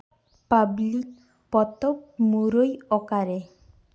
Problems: background sounds at intervals, echo